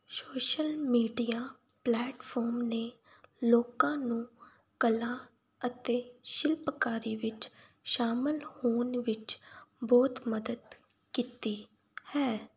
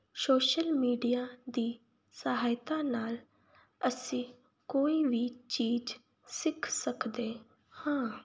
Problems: background sounds at intervals